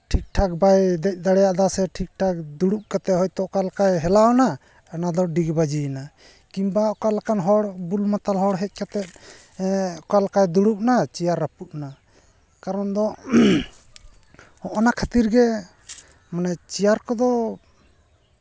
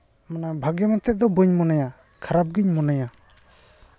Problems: none marked